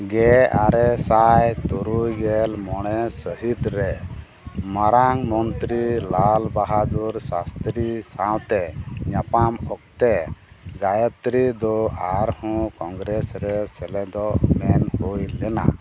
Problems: background sounds at intervals